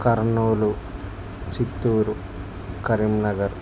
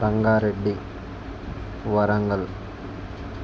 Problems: constant background noise